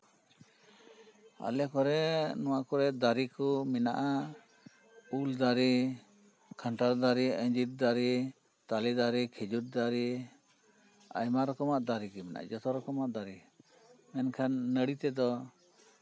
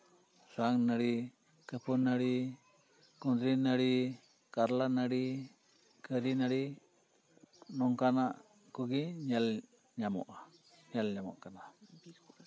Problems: background sounds at intervals